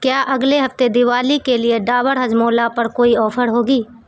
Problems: constant background noise